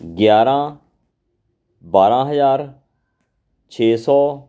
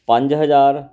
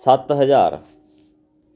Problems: background sounds at intervals